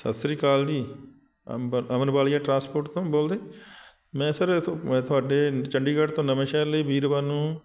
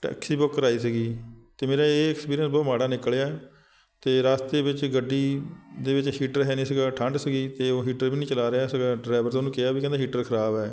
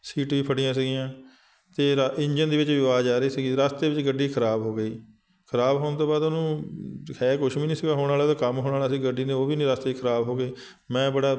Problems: background sounds at intervals